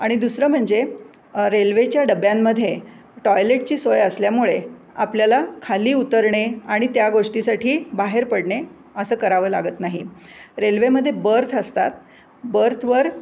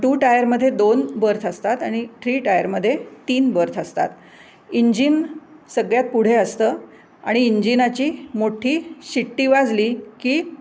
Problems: constant background noise